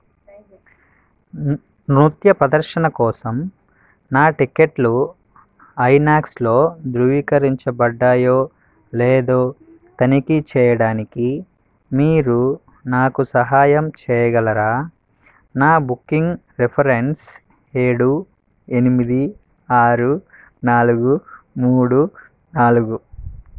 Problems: none marked